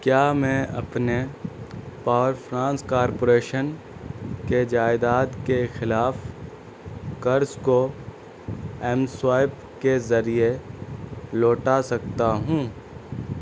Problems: constant background noise